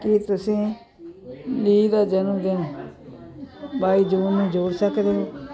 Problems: constant background noise